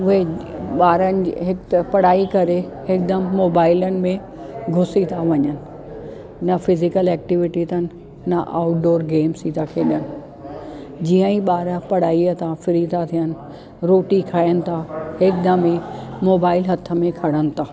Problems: constant background noise